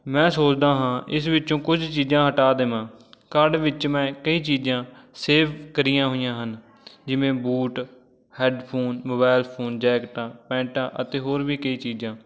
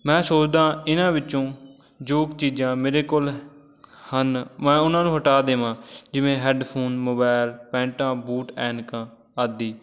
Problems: background sounds at intervals, background conversations at intervals